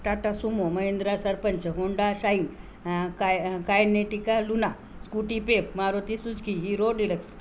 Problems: none marked